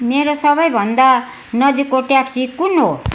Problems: constant background noise